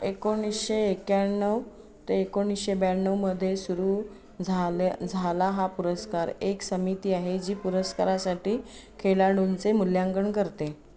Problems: background conversations at intervals